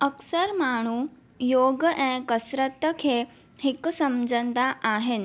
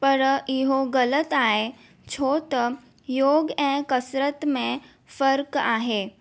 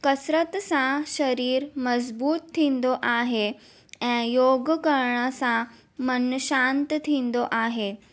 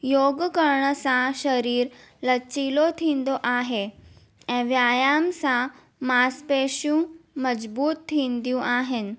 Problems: none marked